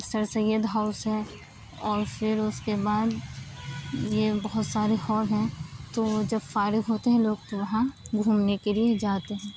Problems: constant background noise